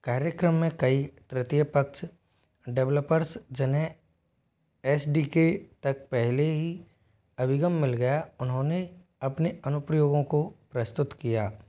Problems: none marked